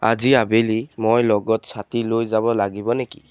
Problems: constant background noise